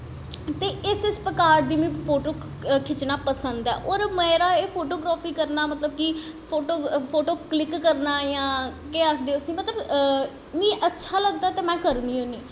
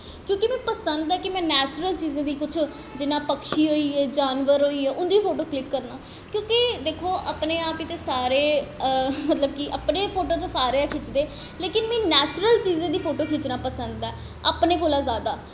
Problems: echo